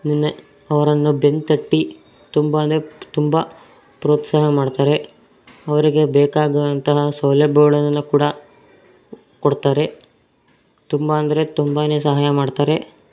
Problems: background sounds at intervals